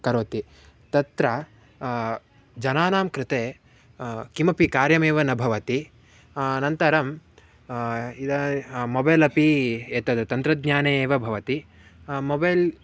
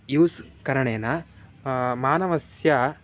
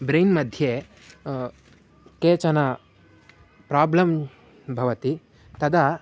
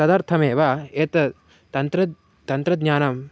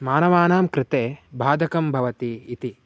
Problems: none marked